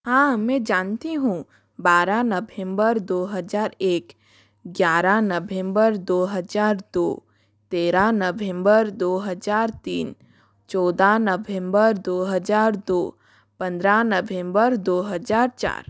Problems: none marked